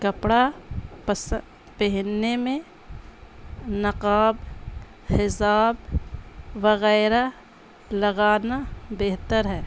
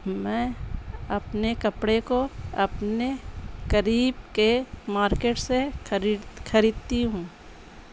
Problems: constant background noise, low volume